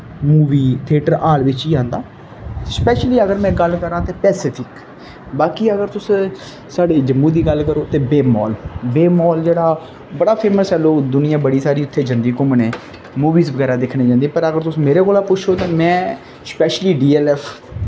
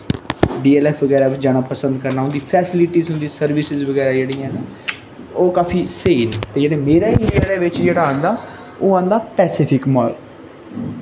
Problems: constant background noise